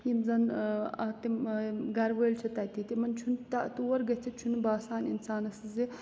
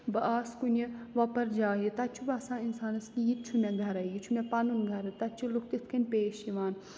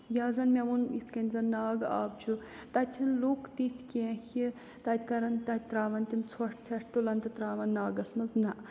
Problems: constant background noise